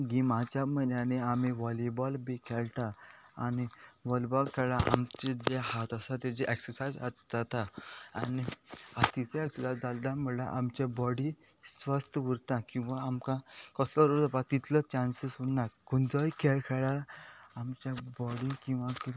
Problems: background sounds at intervals